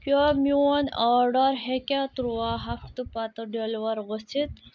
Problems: background sounds at intervals